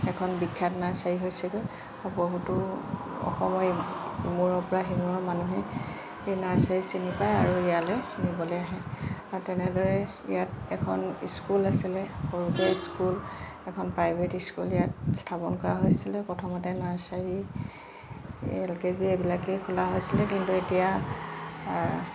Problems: constant background noise